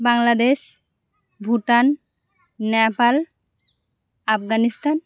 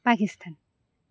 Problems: none marked